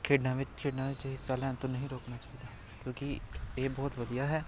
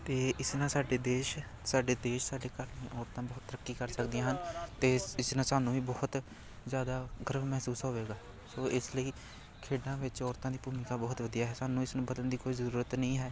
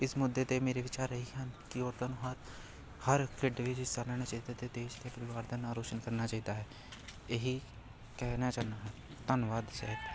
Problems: continuous background conversations